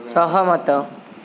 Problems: constant background noise